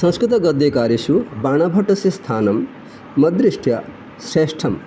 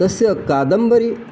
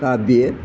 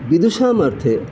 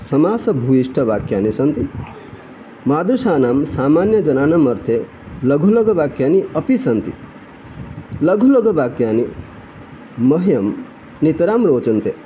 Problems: constant background noise